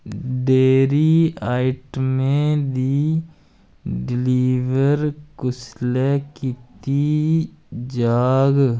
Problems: none marked